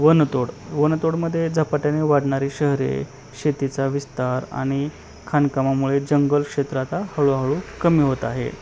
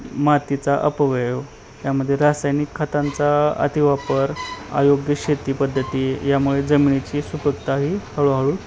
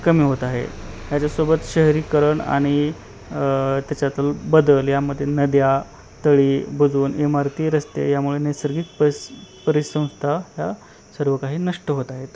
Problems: constant background noise, continuous background conversations